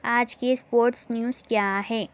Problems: constant background noise